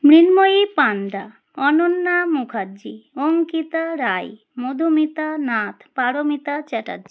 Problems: none marked